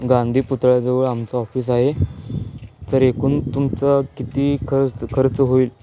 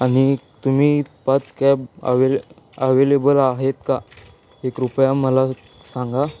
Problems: constant background noise, continuous background conversations